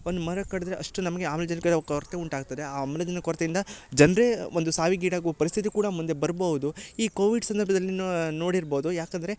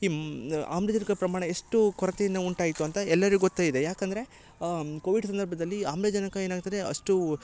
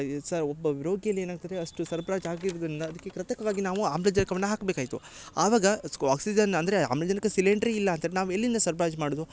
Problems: background sounds at intervals